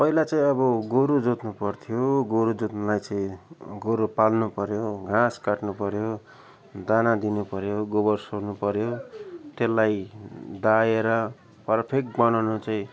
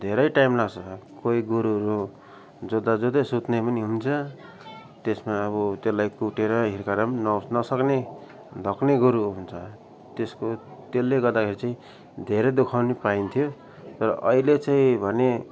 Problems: background sounds at intervals